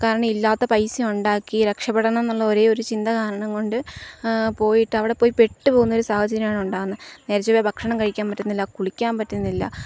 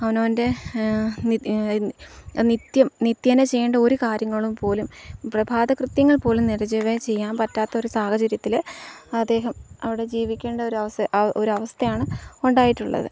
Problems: none marked